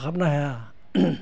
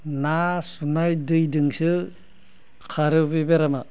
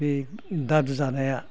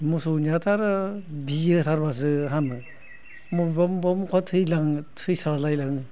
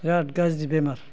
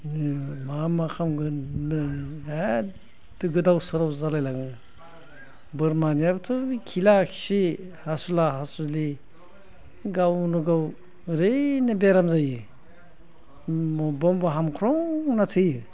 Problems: low volume